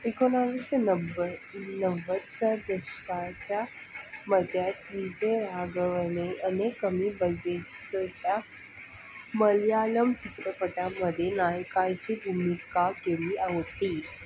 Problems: constant background noise